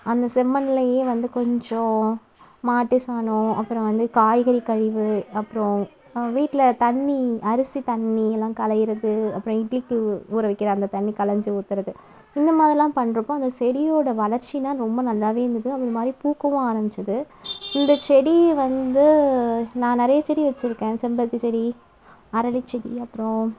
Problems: background sounds at intervals